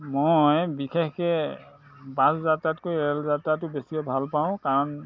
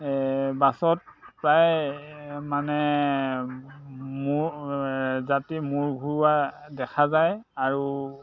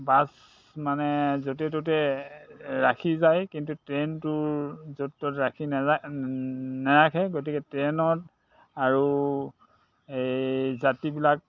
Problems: constant background noise